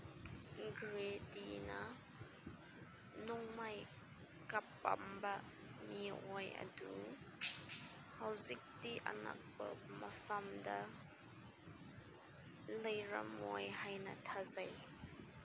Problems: constant background noise, low volume